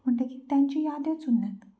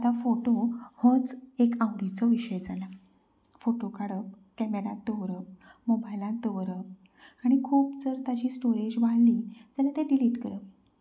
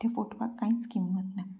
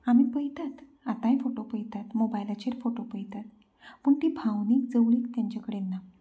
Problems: background sounds at intervals, low volume